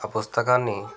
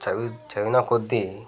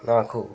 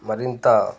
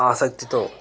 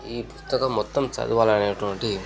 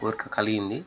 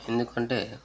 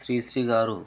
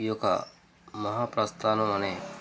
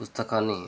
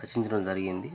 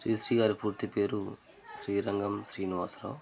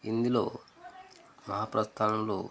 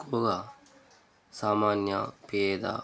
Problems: background conversations at intervals